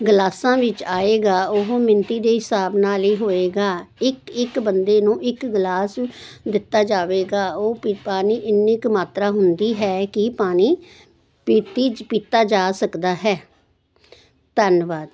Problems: constant background noise